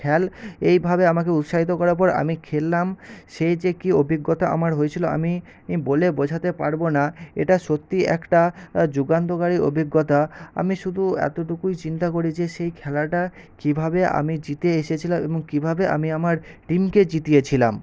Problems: constant background noise